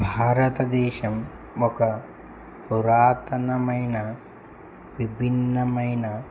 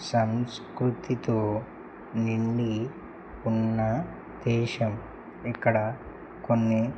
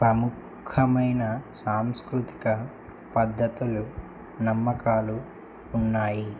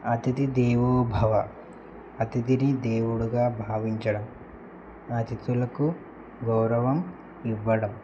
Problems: none marked